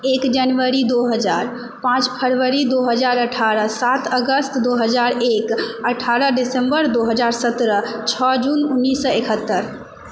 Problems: constant background noise, echo